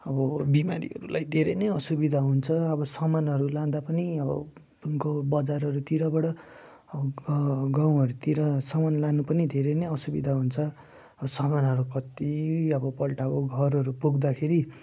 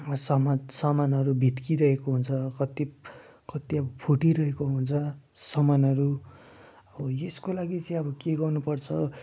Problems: none marked